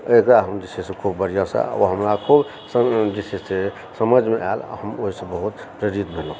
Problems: constant background noise